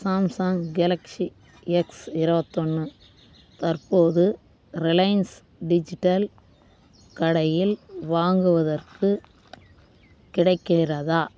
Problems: constant background noise